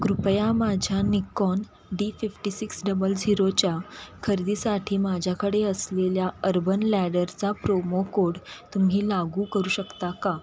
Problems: constant background noise, background conversations at intervals